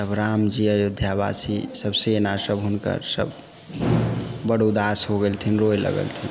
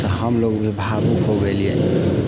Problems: background sounds at intervals, background conversations at intervals